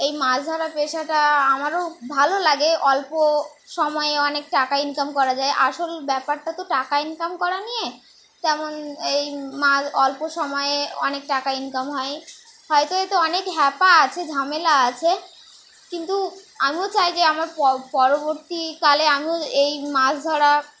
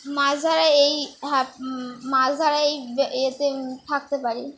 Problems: constant background noise